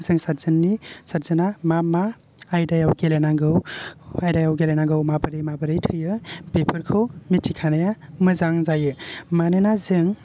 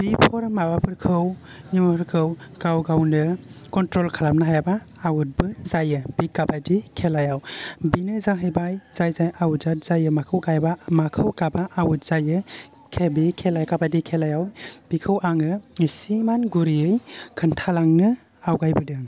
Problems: low volume